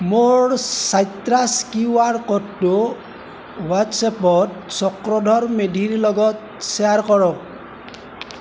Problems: none marked